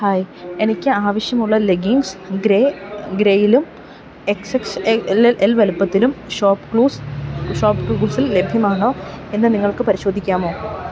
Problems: background sounds at intervals